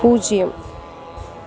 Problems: constant background noise